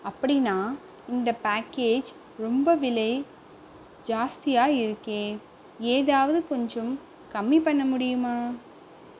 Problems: constant background noise